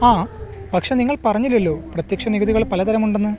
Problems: none marked